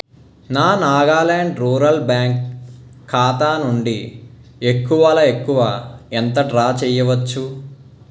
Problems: none marked